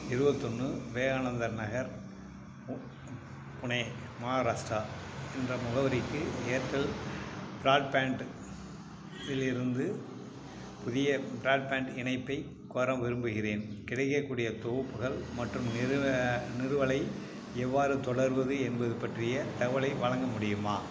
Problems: background sounds at intervals